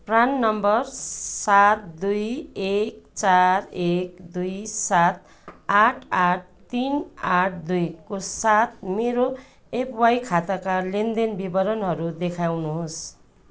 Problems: background sounds at intervals